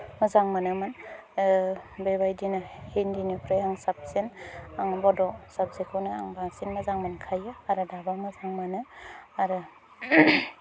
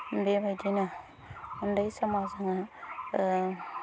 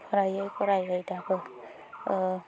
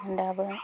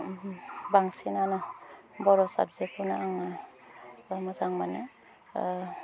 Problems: low volume